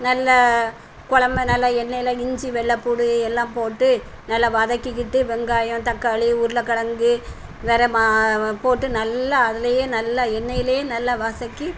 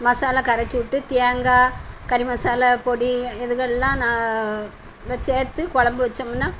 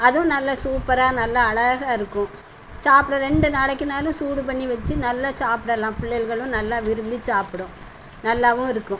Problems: none marked